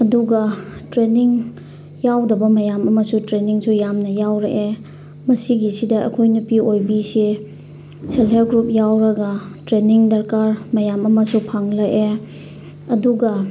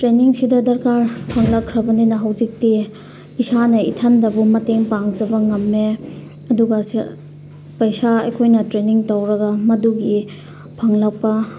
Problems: background sounds at intervals